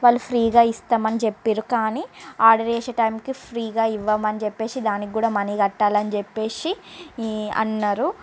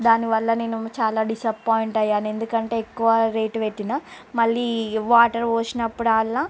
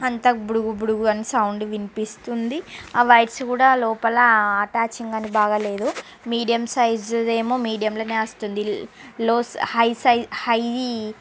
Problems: none marked